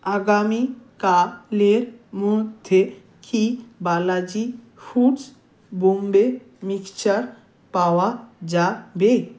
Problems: none marked